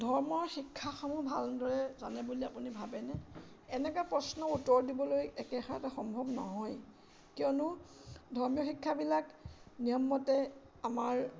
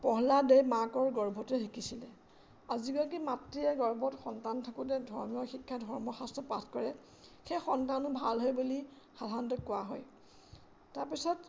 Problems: constant background noise